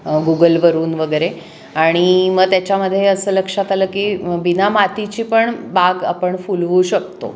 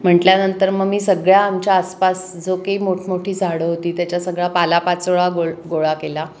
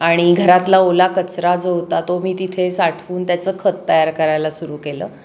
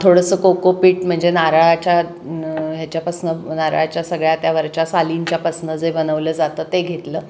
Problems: constant background noise, background conversations at intervals, echo